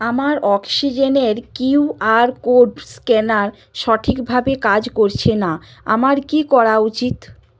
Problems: none marked